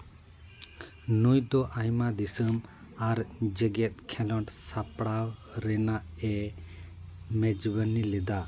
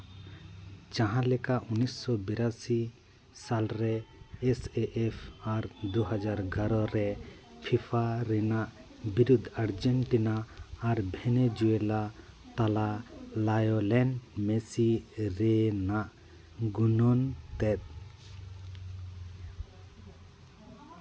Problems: background sounds at intervals